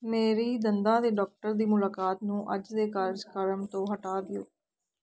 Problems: none marked